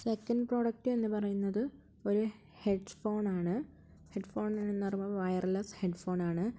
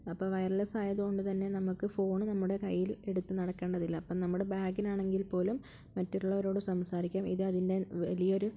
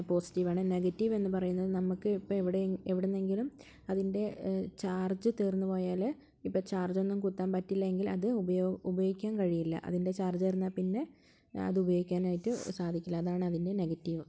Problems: low volume